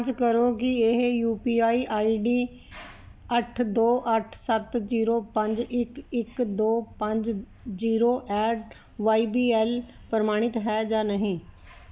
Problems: none marked